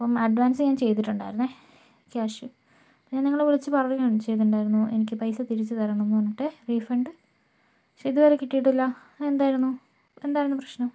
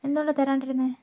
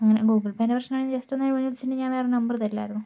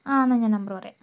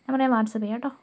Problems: low volume